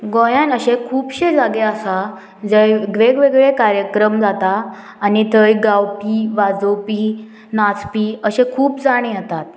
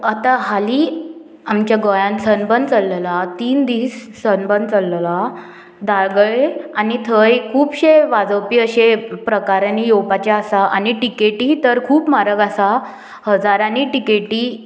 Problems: none marked